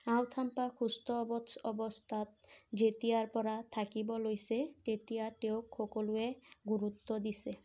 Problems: none marked